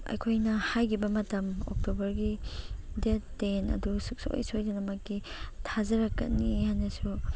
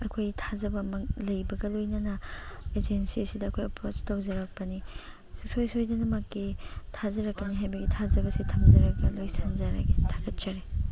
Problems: background sounds at intervals